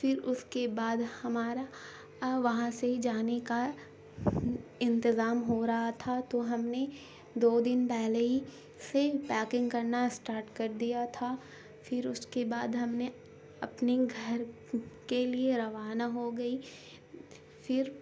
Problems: constant background noise